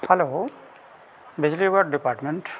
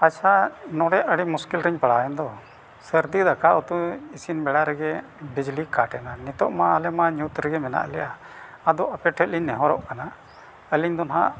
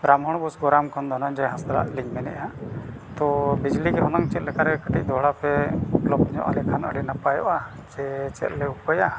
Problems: none marked